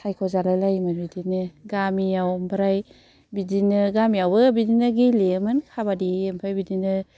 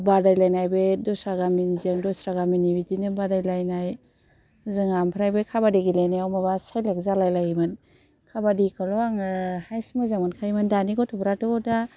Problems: none marked